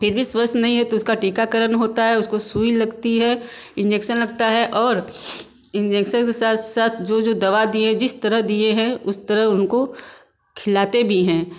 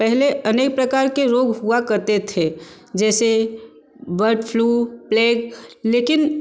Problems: none marked